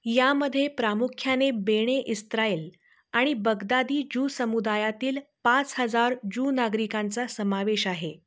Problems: none marked